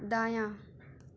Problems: constant background noise